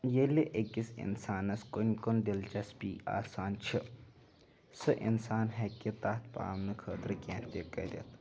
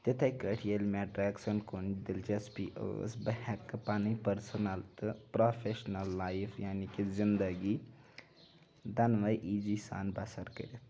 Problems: background sounds at intervals, continuous background conversations